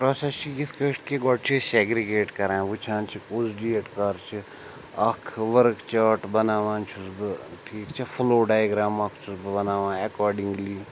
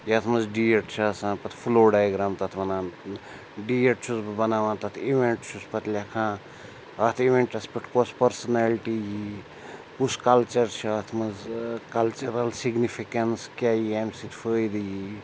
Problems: constant background noise